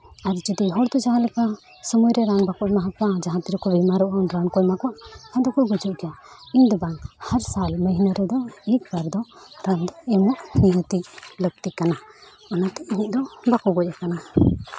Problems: constant background noise, background conversations at intervals